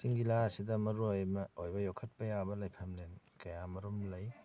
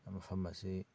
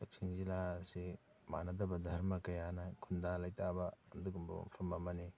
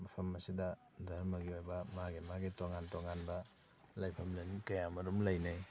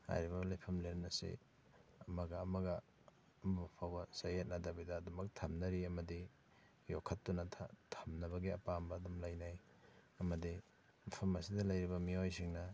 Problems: background sounds at intervals